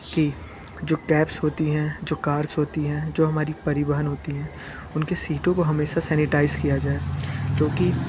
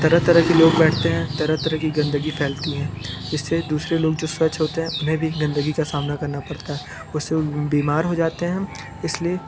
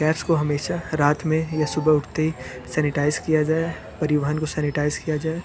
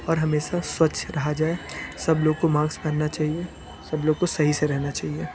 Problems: constant background noise, background conversations at intervals